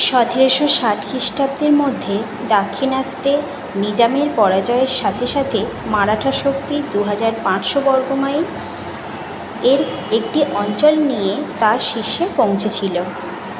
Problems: constant background noise